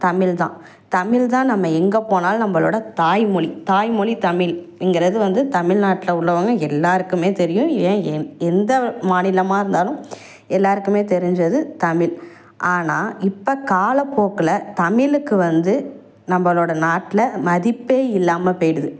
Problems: none marked